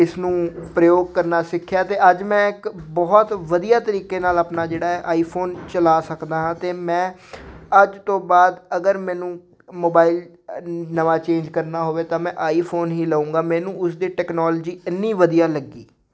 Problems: background conversations at intervals